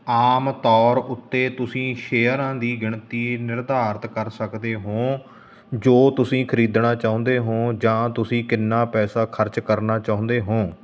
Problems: constant background noise